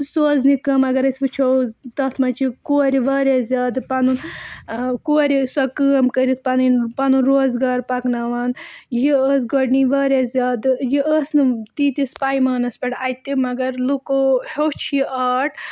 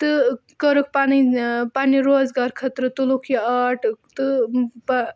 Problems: background sounds at intervals